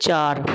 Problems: constant background noise